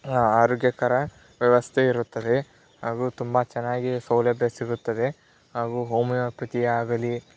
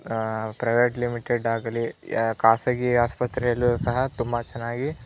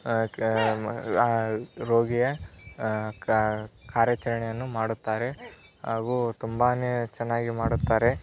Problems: background sounds at intervals